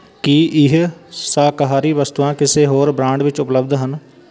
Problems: continuous background conversations